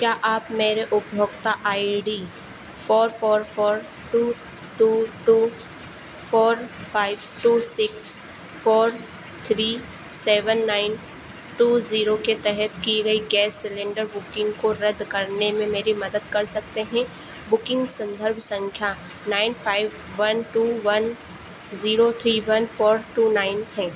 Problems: constant background noise